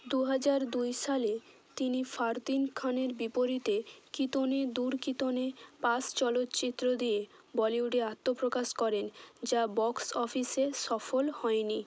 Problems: constant background noise